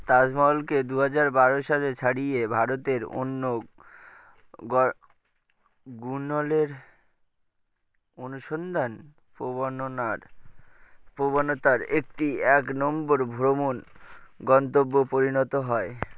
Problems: none marked